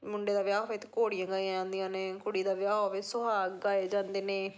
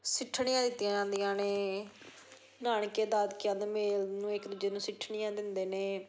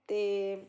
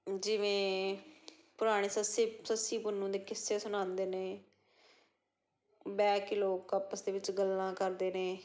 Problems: background conversations at intervals